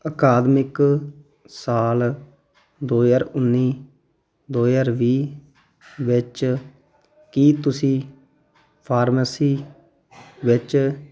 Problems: none marked